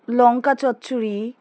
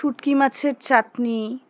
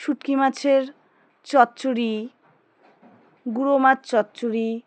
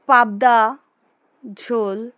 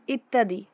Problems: background conversations at intervals